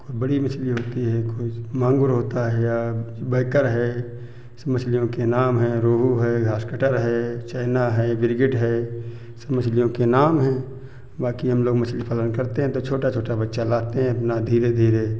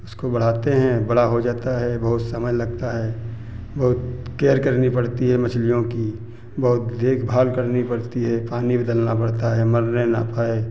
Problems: constant background noise, background conversations at intervals